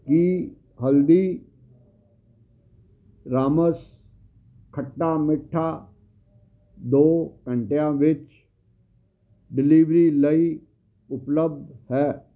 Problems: none marked